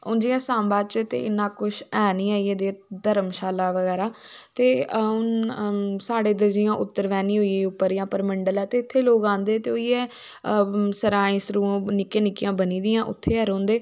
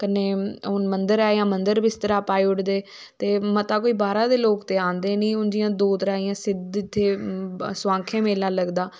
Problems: none marked